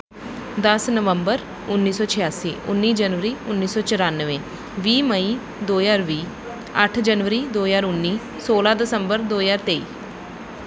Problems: background sounds at intervals